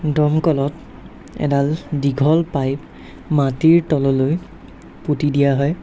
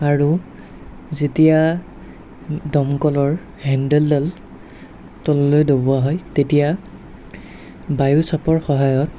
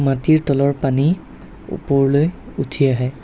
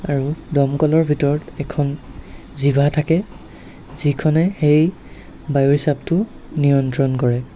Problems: none marked